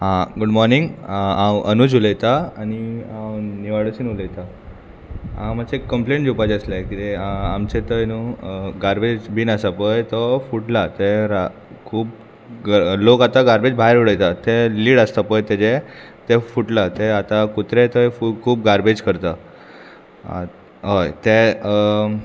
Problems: constant background noise, background conversations at intervals